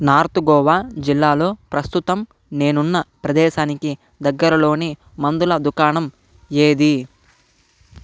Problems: none marked